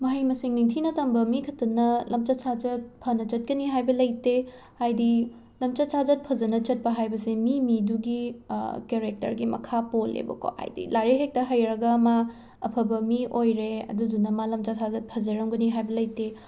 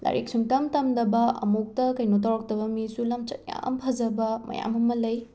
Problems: background sounds at intervals